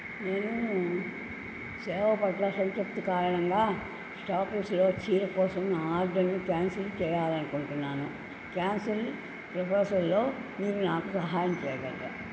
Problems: constant background noise, low volume